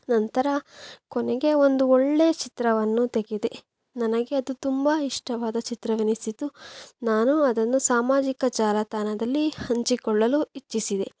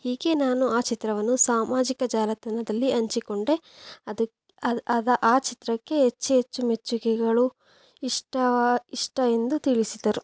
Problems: background sounds at intervals